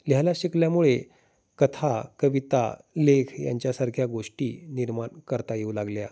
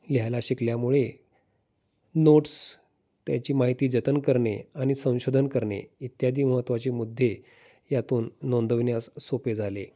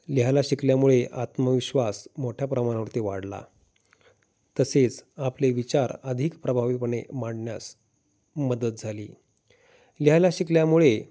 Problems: none marked